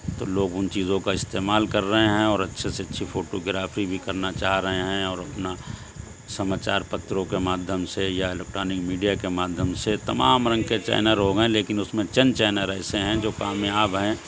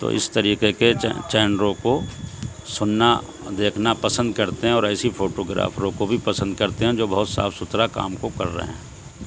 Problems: constant background noise, background conversations at intervals